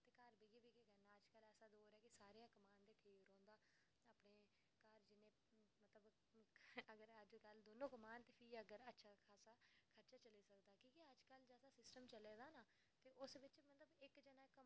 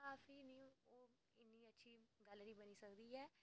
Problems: none marked